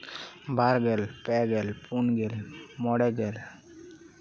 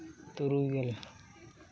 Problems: continuous background conversations